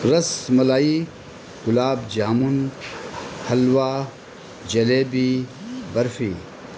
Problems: constant background noise